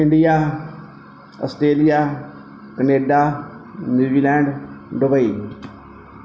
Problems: background sounds at intervals